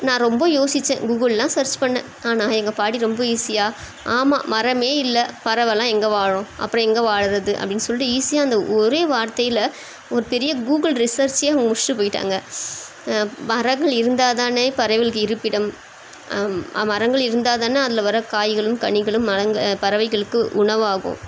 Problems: constant background noise